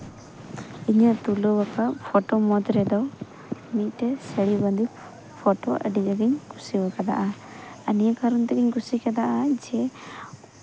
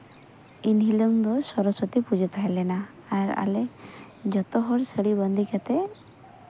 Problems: constant background noise